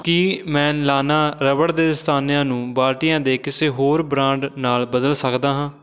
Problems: continuous background conversations